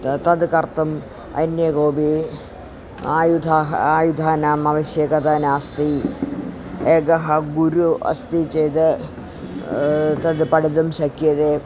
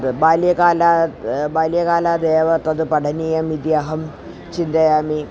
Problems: constant background noise